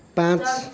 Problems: background conversations at intervals